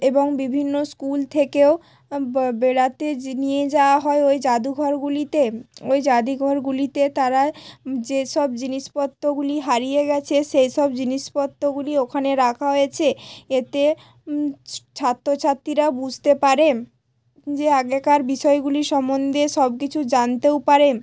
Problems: none marked